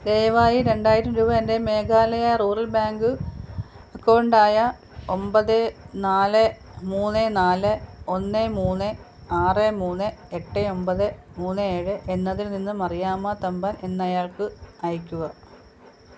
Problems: constant background noise